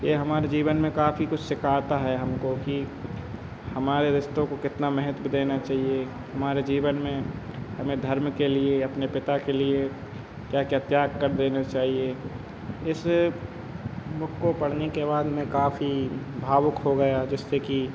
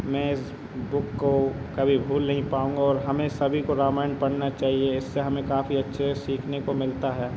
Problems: none marked